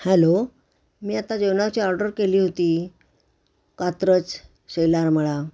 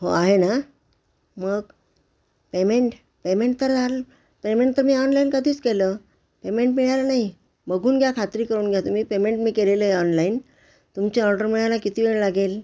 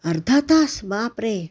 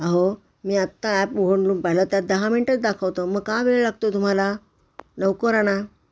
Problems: constant background noise